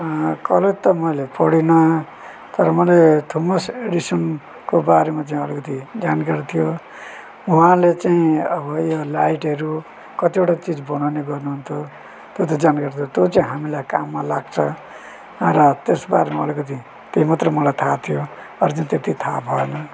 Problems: none marked